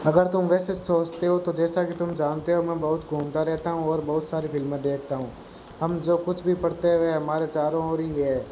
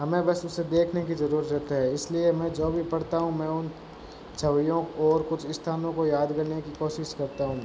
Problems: none marked